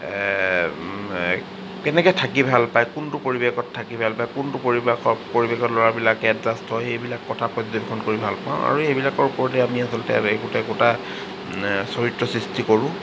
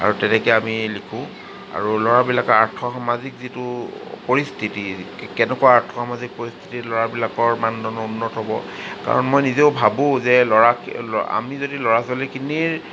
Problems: constant background noise